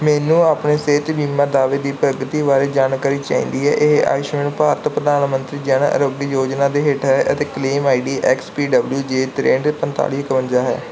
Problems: background sounds at intervals